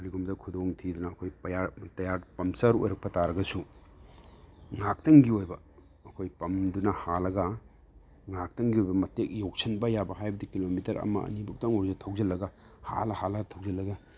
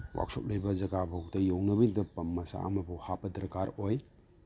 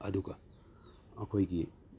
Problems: none marked